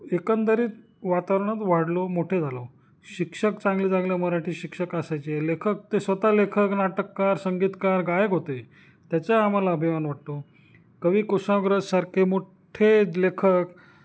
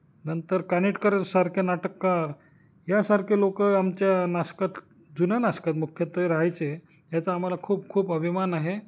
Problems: none marked